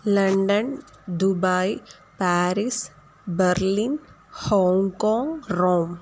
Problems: constant background noise